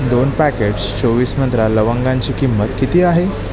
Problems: constant background noise, continuous background conversations